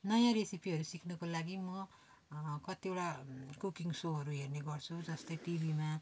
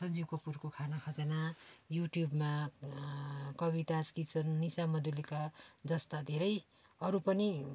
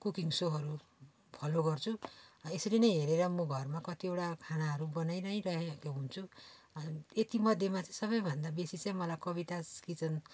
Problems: background sounds at intervals